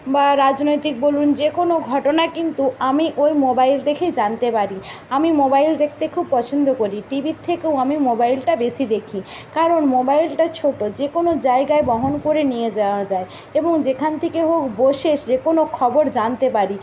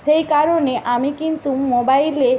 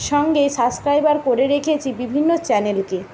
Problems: constant background noise